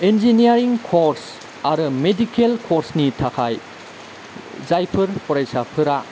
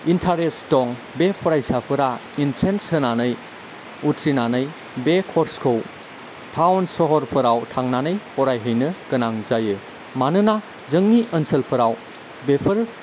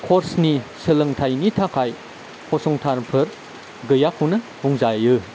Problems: constant background noise, low volume